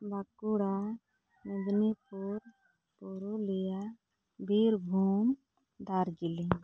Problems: none marked